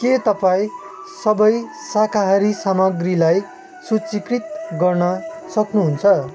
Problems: constant background noise